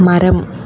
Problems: constant background noise